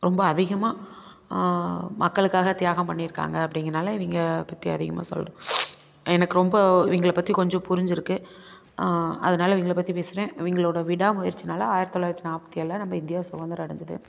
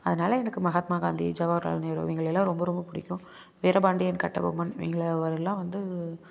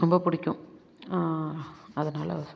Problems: none marked